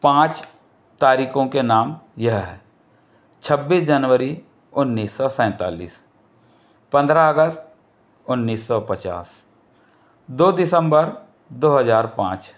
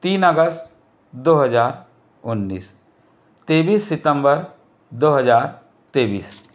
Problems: none marked